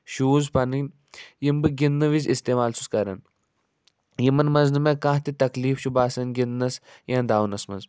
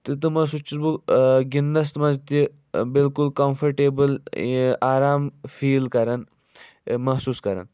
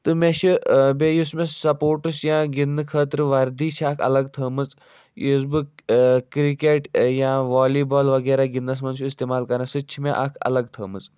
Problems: none marked